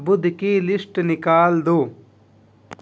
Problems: none marked